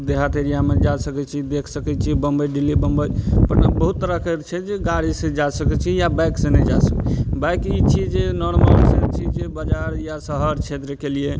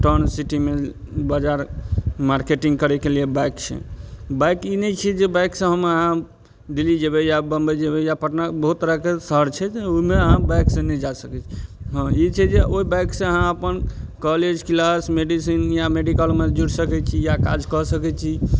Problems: none marked